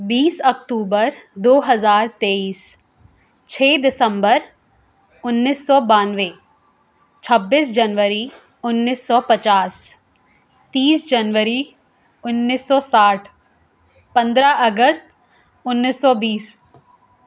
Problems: none marked